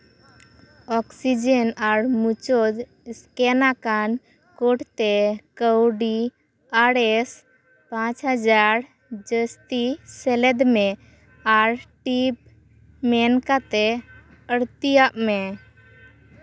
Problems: constant background noise, background conversations at intervals